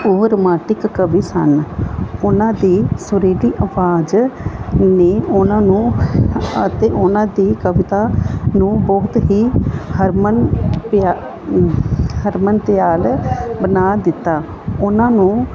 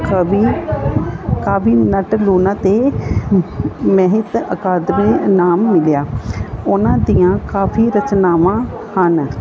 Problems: constant background noise, background conversations at intervals